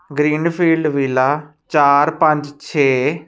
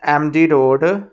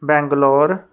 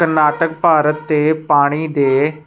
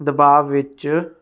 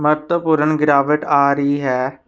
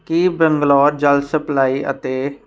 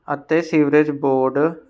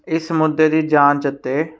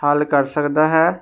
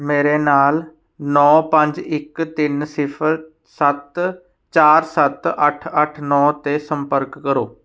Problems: background sounds at intervals